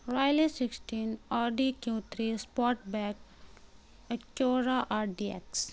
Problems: constant background noise